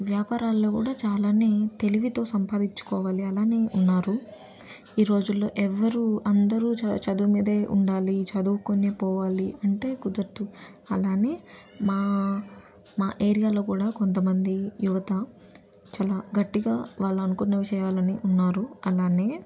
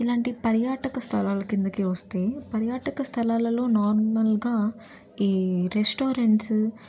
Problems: constant background noise